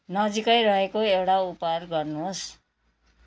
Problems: none marked